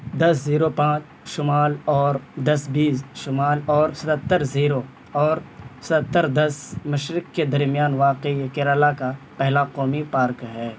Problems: constant background noise